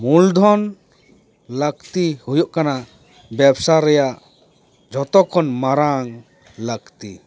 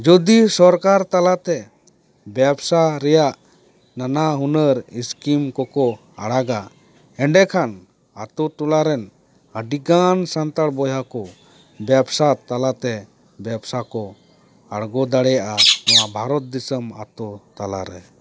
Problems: background sounds at intervals